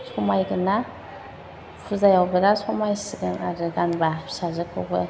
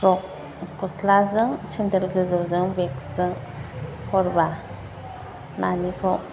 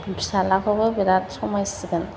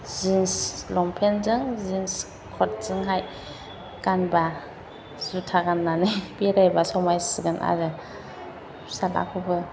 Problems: constant background noise